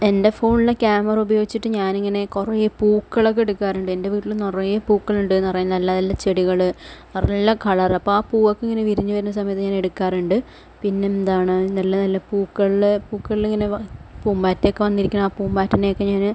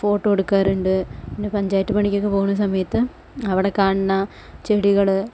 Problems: none marked